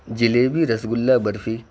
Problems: constant background noise